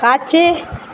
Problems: none marked